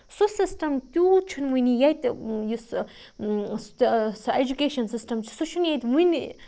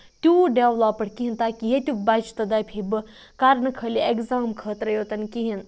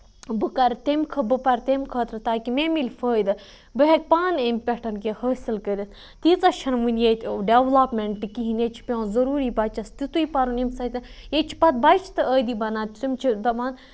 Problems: background sounds at intervals, low volume